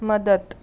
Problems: background sounds at intervals